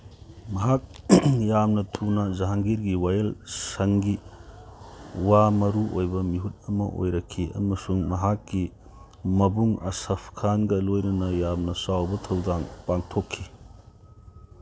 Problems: background sounds at intervals